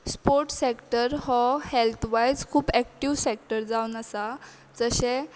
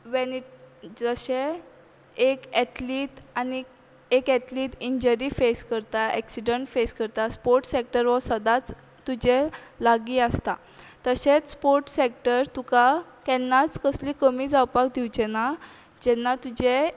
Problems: background conversations at intervals